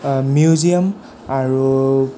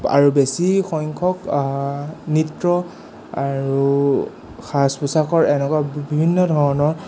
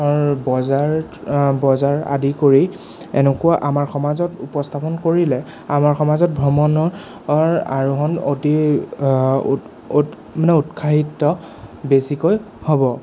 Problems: none marked